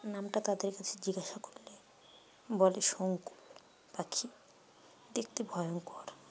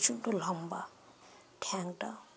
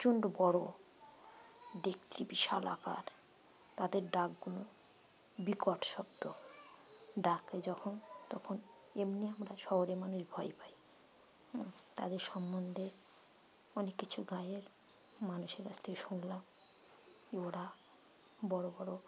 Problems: background conversations at intervals